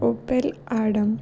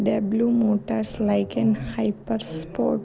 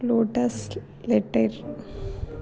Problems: background conversations at intervals